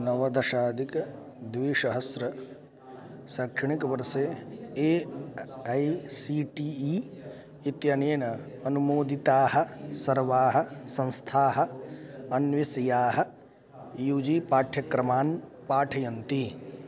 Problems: constant background noise